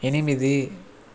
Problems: constant background noise